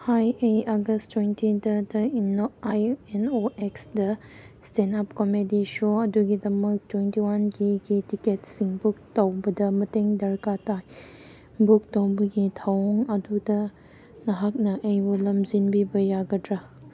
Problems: none marked